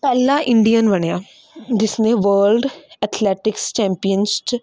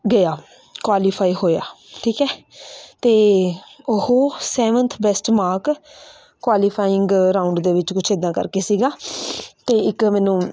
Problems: constant background noise